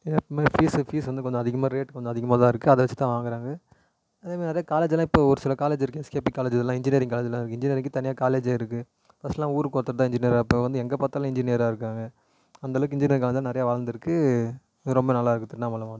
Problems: echo